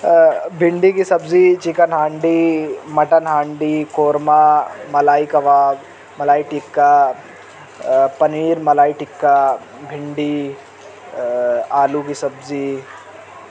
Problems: constant background noise